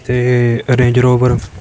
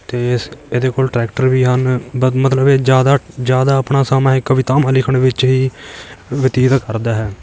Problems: background sounds at intervals